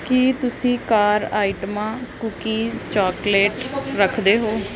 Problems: none marked